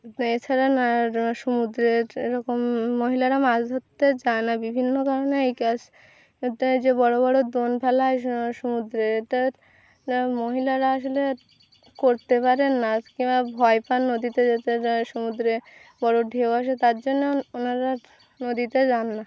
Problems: none marked